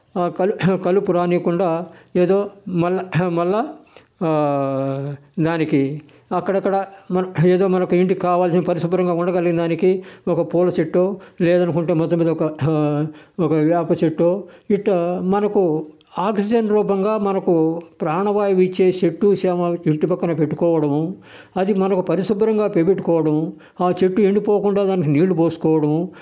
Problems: none marked